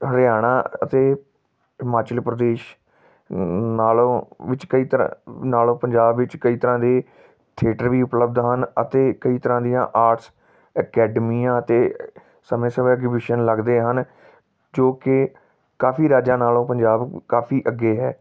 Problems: background sounds at intervals